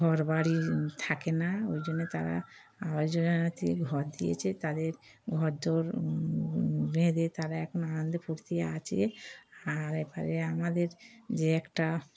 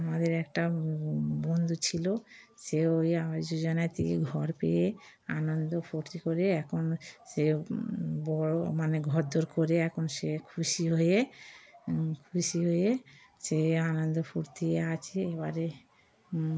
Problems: background sounds at intervals